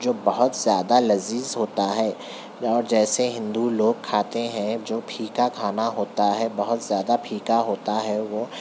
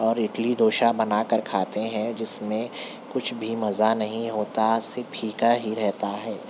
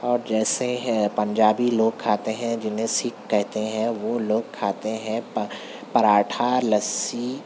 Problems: constant background noise